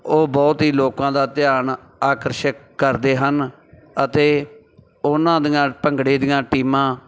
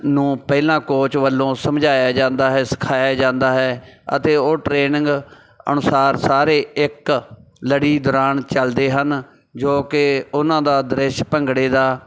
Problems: background sounds at intervals